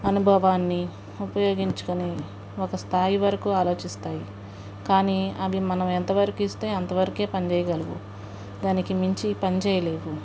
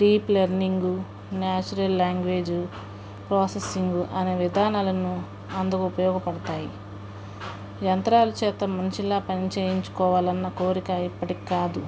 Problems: background sounds at intervals, background conversations at intervals